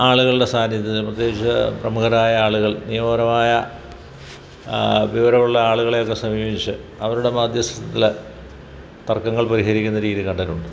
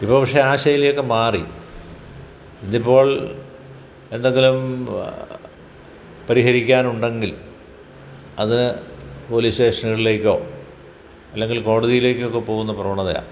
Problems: background sounds at intervals